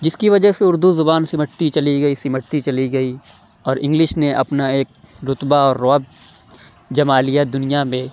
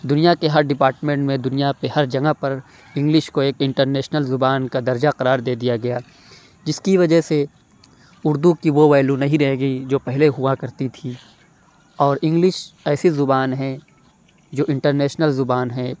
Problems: none marked